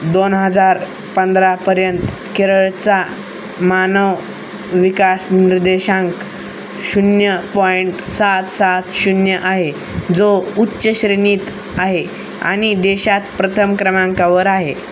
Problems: none marked